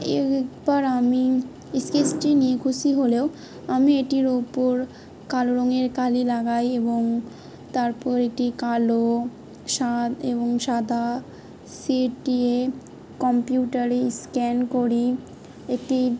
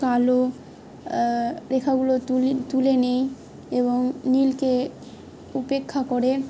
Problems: constant background noise